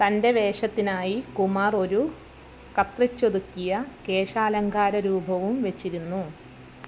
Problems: low volume